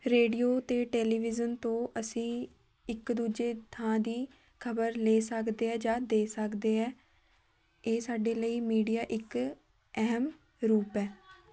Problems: background sounds at intervals, background conversations at intervals